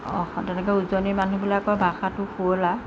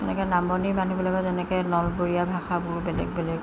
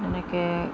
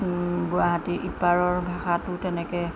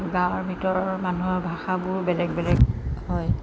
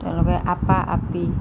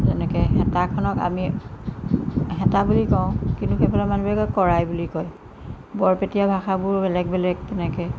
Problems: constant background noise